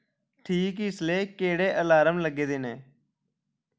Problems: background conversations at intervals